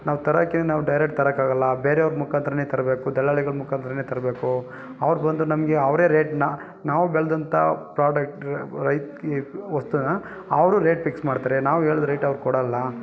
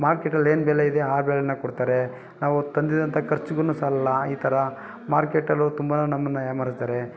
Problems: none marked